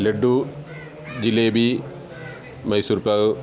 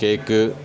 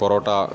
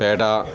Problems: none marked